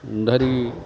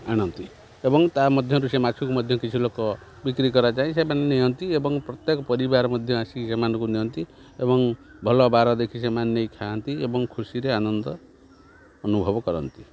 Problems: background sounds at intervals